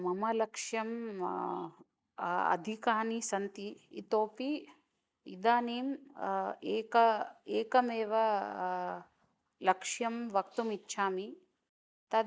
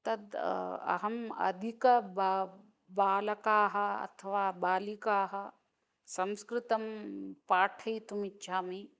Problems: none marked